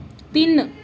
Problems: background sounds at intervals